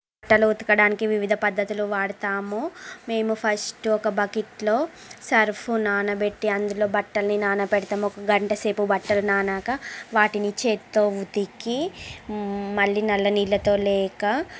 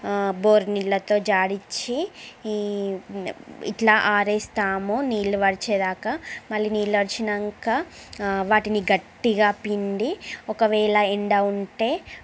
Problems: constant background noise, background conversations at intervals